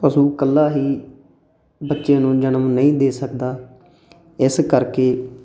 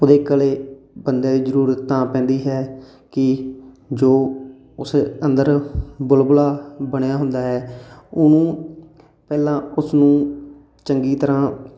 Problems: constant background noise